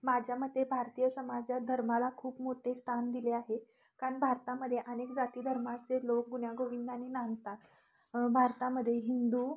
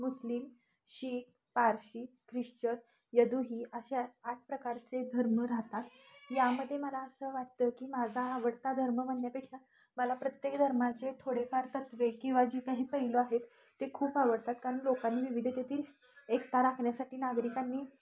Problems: constant background noise, continuous background conversations